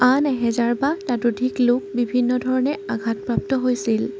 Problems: constant background noise